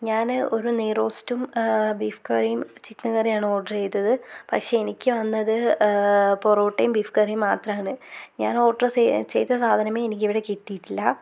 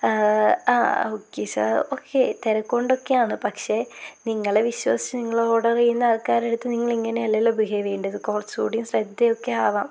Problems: constant background noise